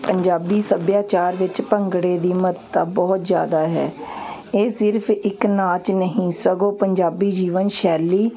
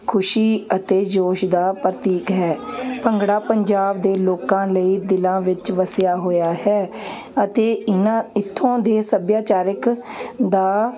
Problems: none marked